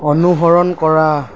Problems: none marked